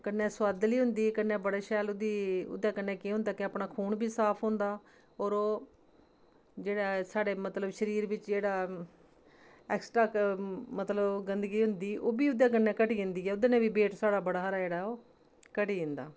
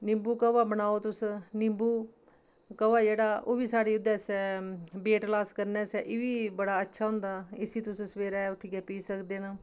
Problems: constant background noise